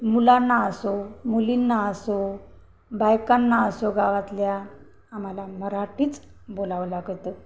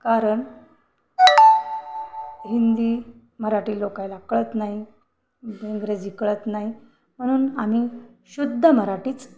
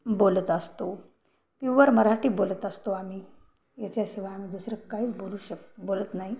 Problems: background sounds at intervals